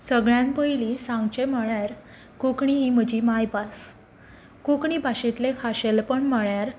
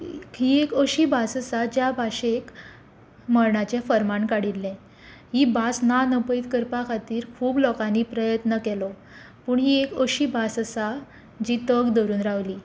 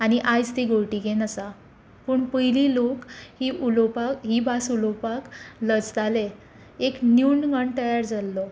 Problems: none marked